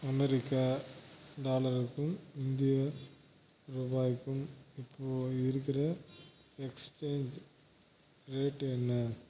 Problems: constant background noise, low volume